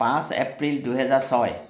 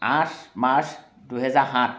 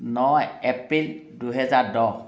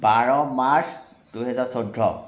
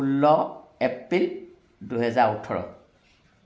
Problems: none marked